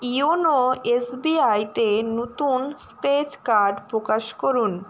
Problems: constant background noise